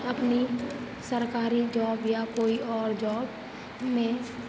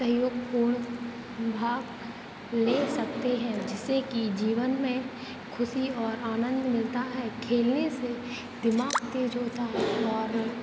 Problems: none marked